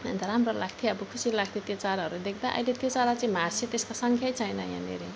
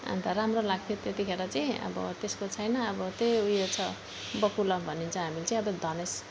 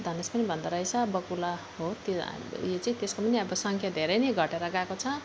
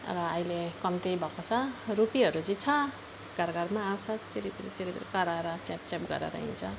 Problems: none marked